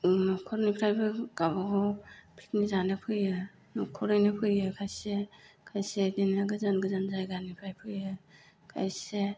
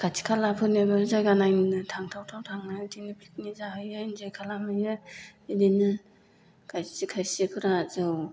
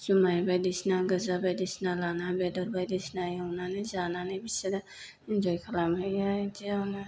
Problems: low volume